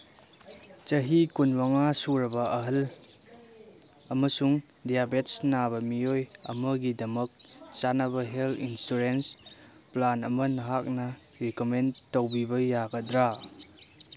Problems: background sounds at intervals